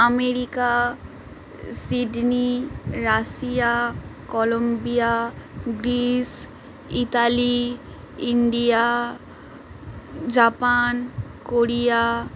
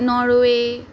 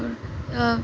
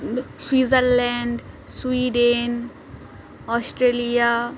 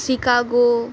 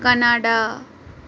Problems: constant background noise